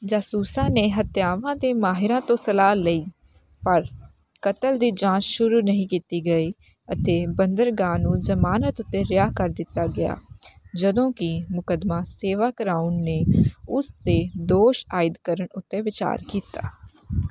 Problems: none marked